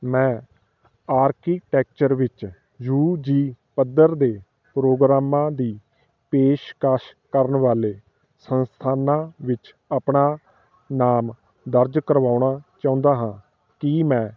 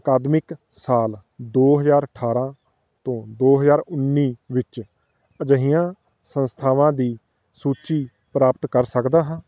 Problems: background sounds at intervals